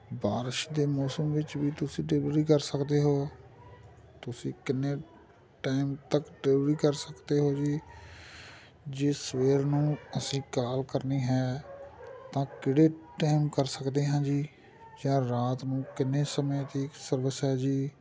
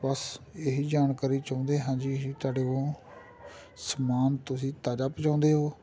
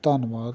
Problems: continuous background conversations